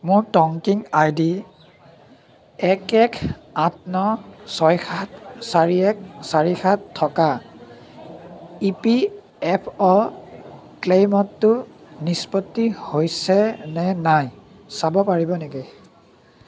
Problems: continuous background conversations